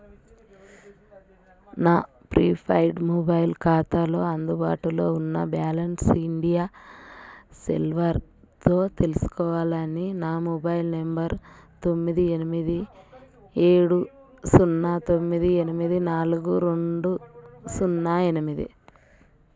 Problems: background conversations at intervals